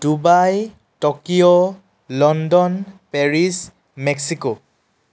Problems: none marked